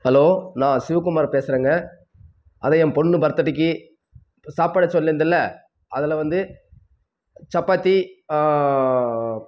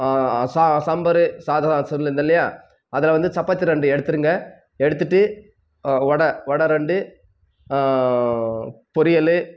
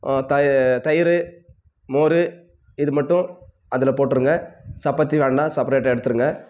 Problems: none marked